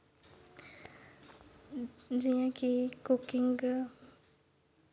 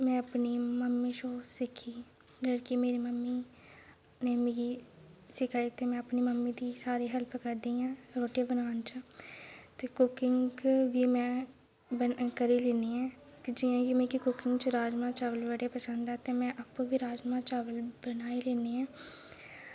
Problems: none marked